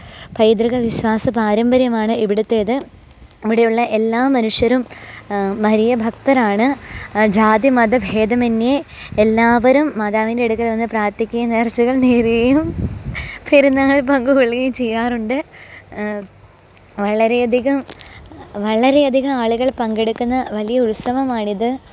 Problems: background sounds at intervals, background conversations at intervals